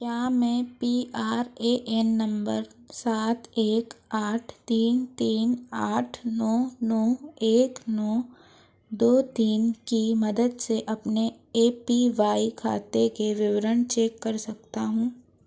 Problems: none marked